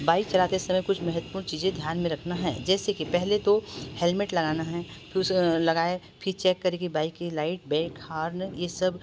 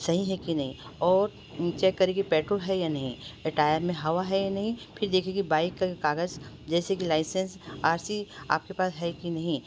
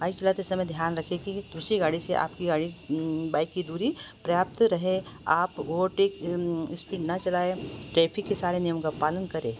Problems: constant background noise